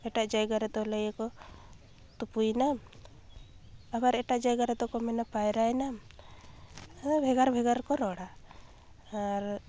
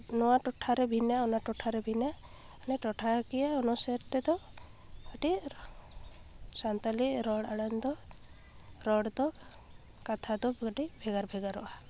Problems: none marked